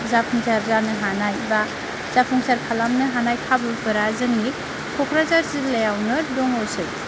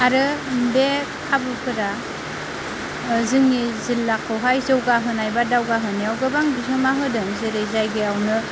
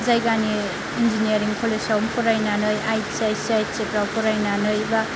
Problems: constant background noise, low volume